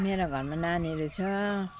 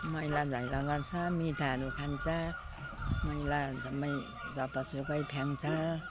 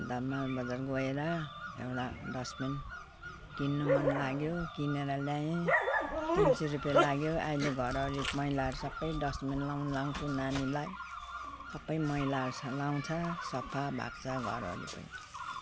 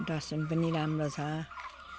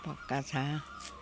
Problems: constant background noise